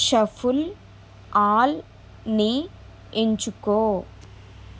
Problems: constant background noise